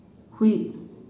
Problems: constant background noise